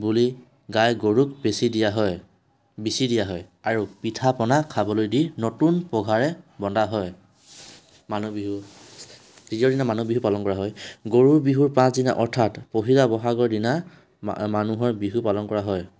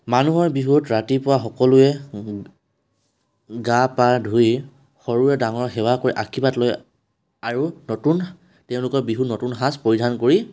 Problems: background sounds at intervals